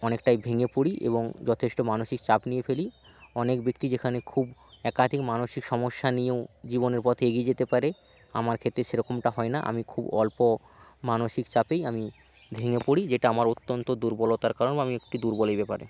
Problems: none marked